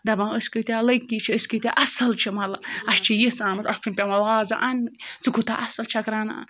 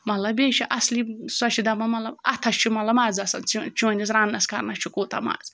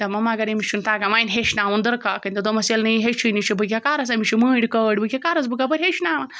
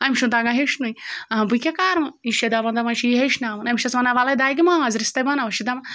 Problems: background sounds at intervals